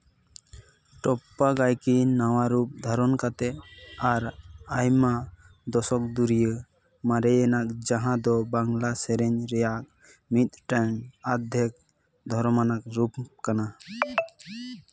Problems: background sounds at intervals, background conversations at intervals